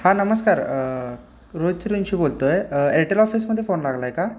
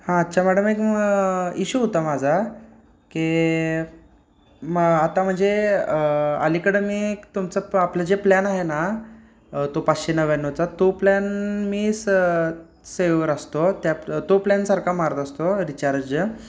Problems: none marked